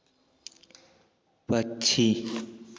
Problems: background sounds at intervals